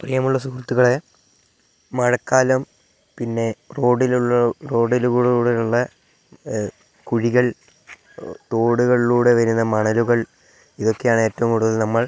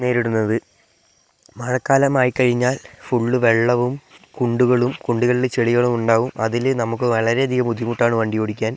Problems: none marked